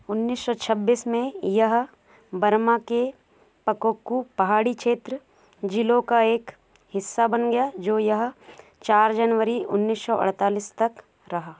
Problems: constant background noise